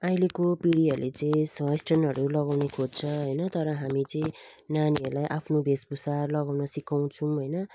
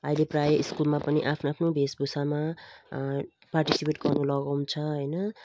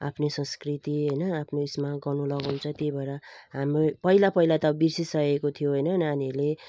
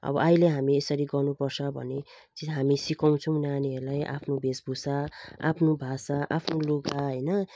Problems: background sounds at intervals